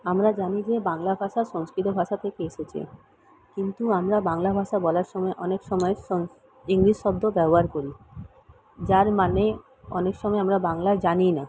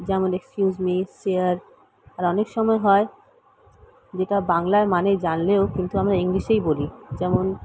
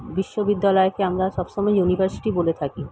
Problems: background sounds at intervals